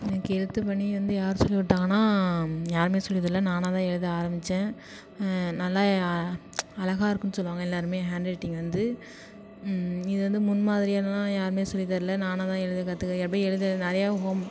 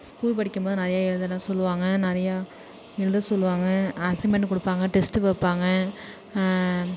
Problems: none marked